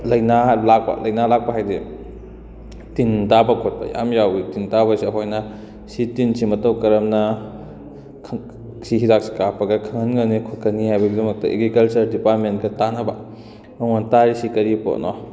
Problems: background conversations at intervals